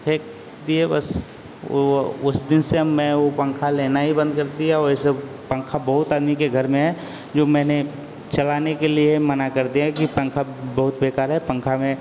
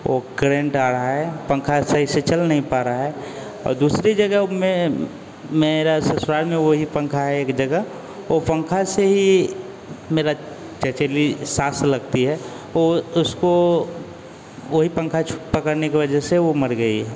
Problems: constant background noise